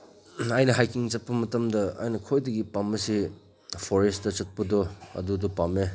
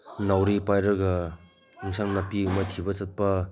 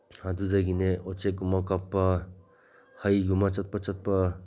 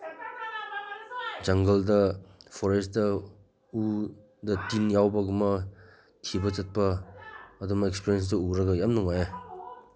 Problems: background sounds at intervals, background conversations at intervals